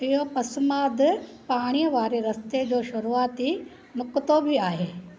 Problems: constant background noise